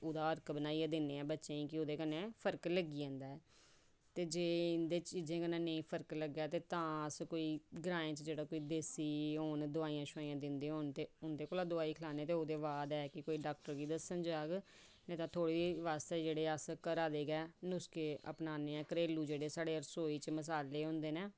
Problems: low volume